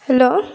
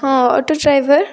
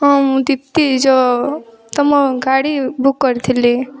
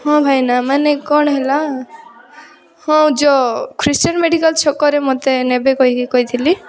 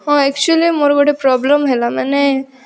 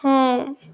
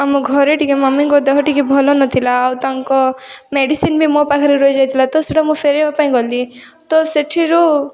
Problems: continuous background conversations